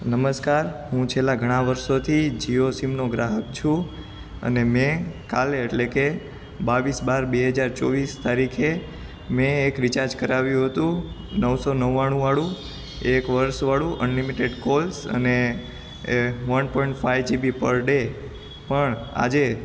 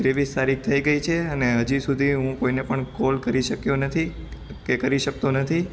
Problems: constant background noise